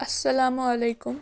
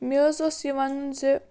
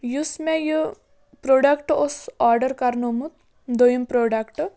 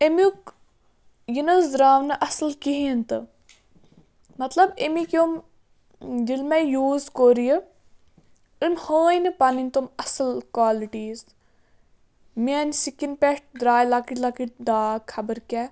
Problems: background sounds at intervals